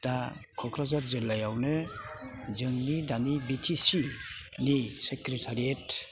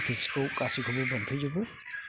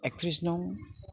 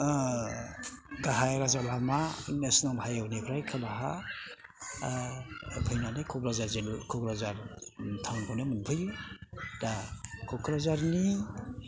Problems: background sounds at intervals